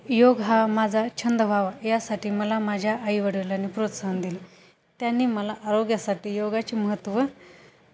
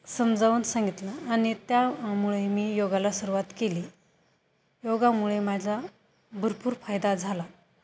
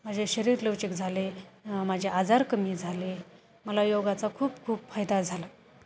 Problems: constant background noise